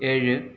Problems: none marked